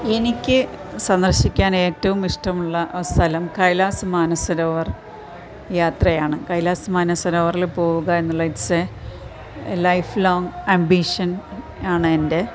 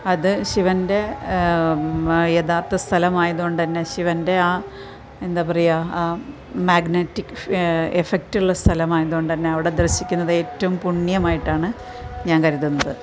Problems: constant background noise